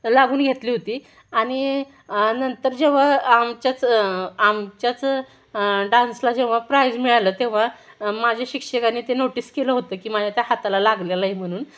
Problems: background sounds at intervals, background conversations at intervals